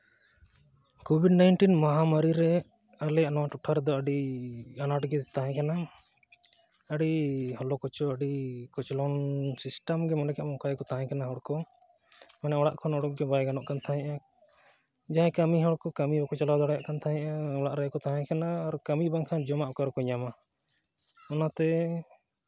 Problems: none marked